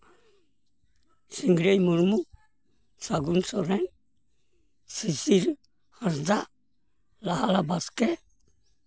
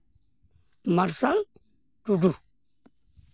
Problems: background sounds at intervals